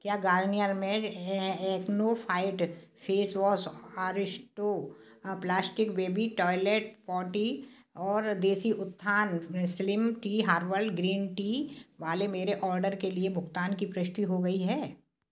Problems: background sounds at intervals, background conversations at intervals